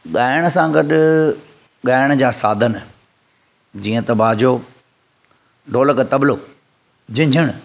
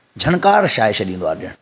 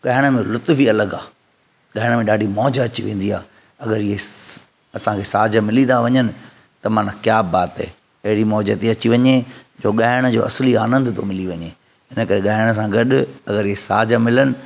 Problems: none marked